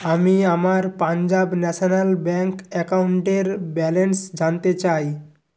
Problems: constant background noise